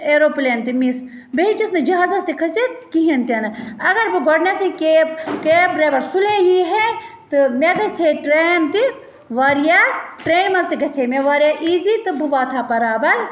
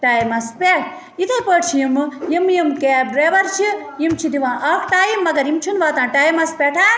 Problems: constant background noise